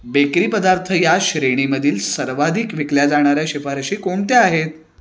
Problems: none marked